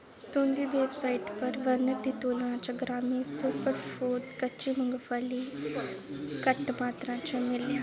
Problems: constant background noise, background conversations at intervals